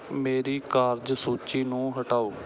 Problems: background sounds at intervals